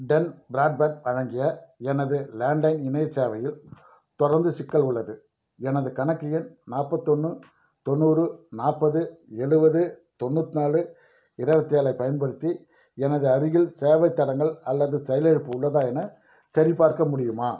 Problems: none marked